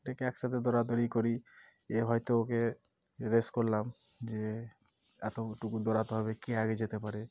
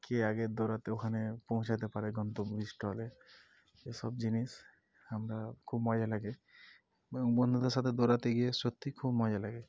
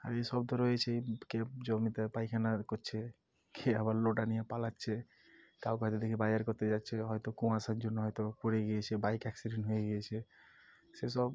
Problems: none marked